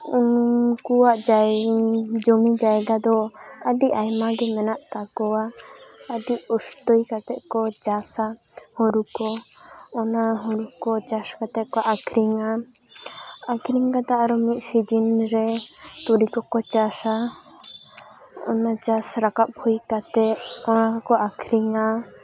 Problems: constant background noise, background conversations at intervals